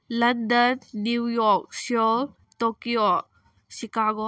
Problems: none marked